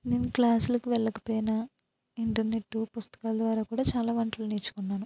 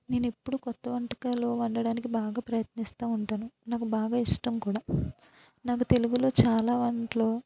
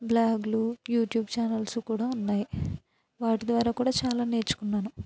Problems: low volume